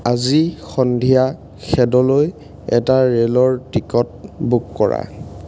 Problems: none marked